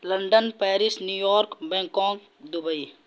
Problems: background sounds at intervals